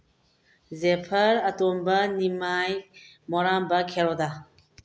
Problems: low volume